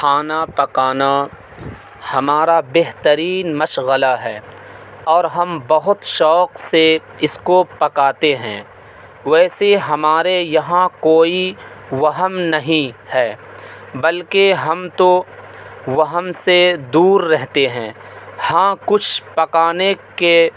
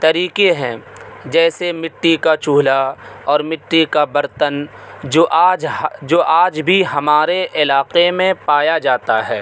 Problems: constant background noise